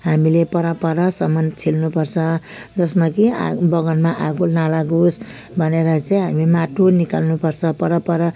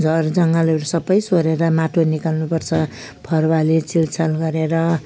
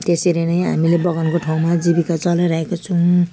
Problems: background sounds at intervals